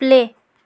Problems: background sounds at intervals